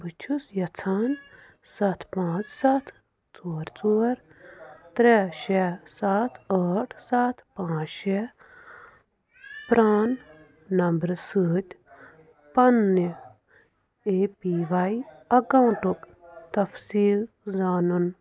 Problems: background sounds at intervals, background conversations at intervals